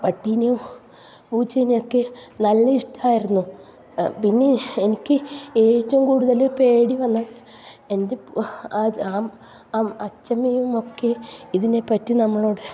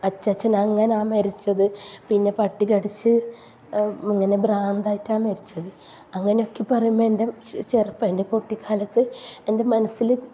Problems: low volume